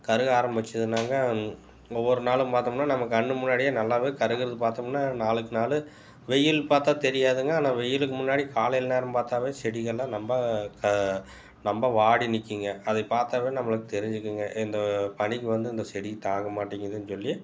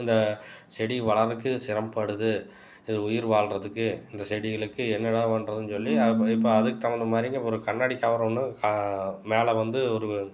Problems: background sounds at intervals